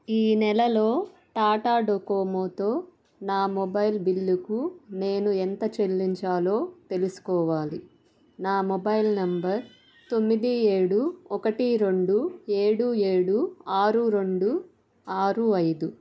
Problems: none marked